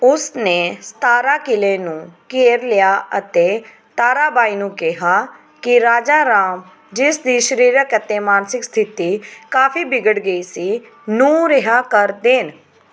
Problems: background sounds at intervals